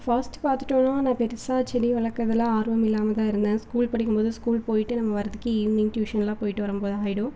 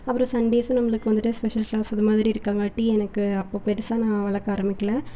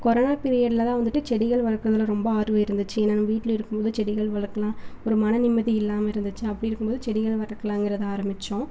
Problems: none marked